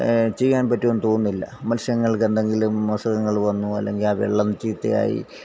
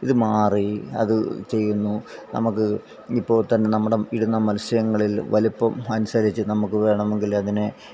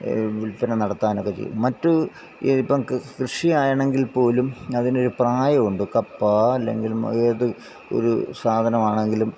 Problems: background sounds at intervals, low volume